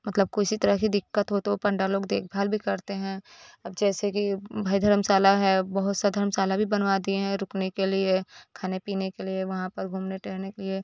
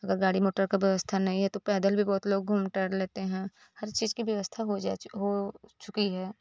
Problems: none marked